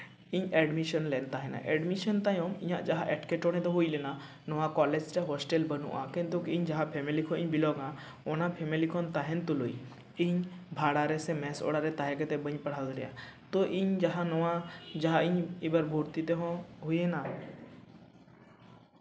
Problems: echo